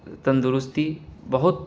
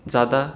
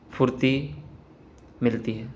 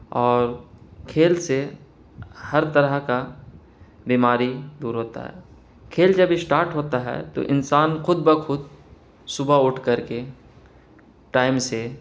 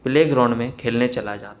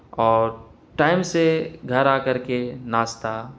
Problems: constant background noise